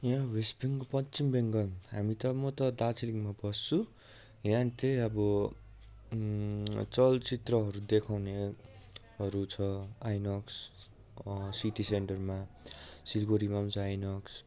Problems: continuous background conversations